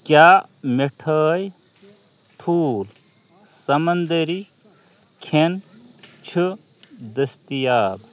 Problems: none marked